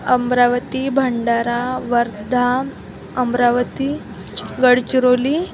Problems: constant background noise, background conversations at intervals